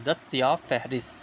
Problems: none marked